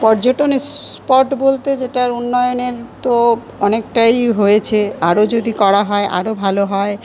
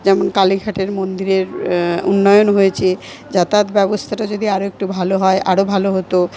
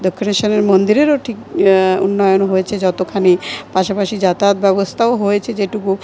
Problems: continuous background conversations